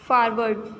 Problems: none marked